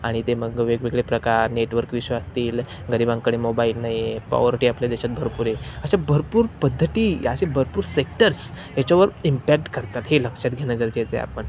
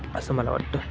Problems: constant background noise, background conversations at intervals